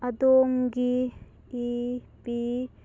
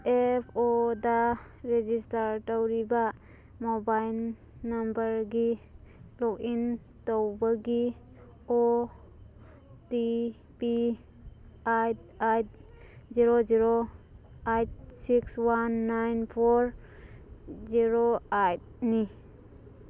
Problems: background sounds at intervals